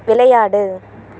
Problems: constant background noise